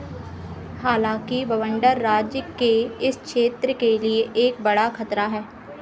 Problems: constant background noise, echo